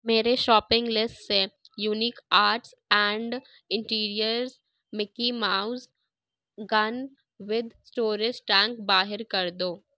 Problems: none marked